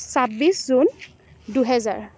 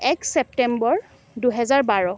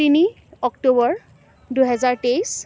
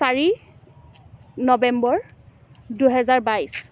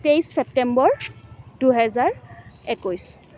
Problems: none marked